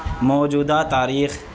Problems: constant background noise